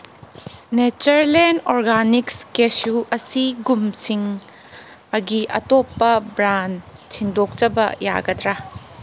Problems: background sounds at intervals